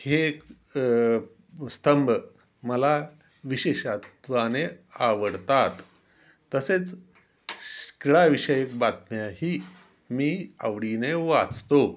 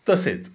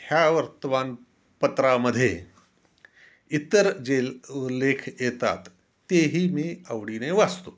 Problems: constant background noise, background conversations at intervals